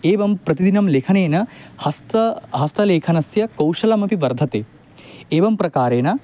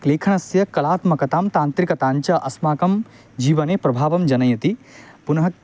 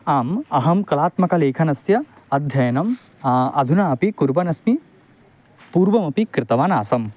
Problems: none marked